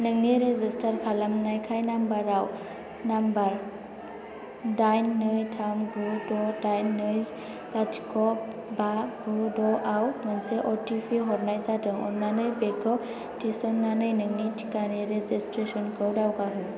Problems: constant background noise